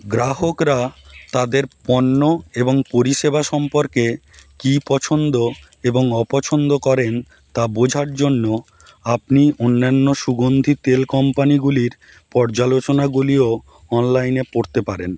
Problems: constant background noise